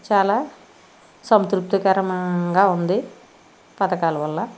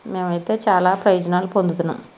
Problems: constant background noise